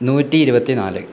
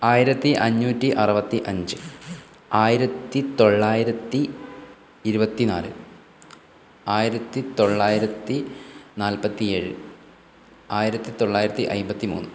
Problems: background sounds at intervals